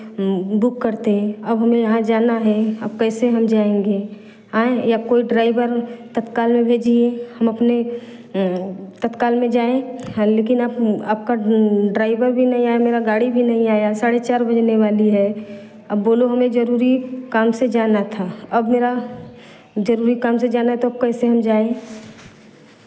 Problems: constant background noise